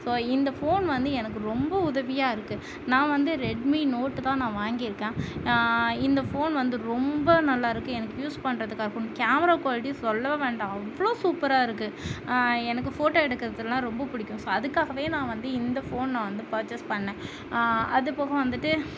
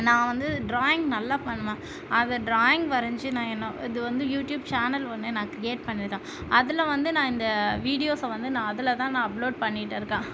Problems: constant background noise